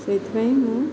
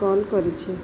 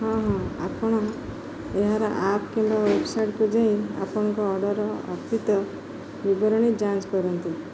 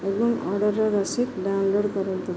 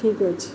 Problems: constant background noise